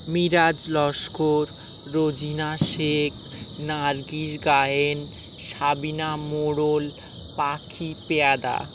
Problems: constant background noise